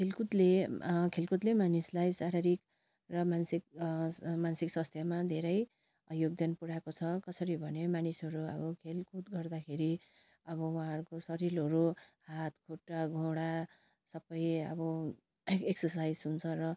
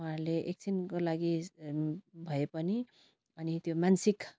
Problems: none marked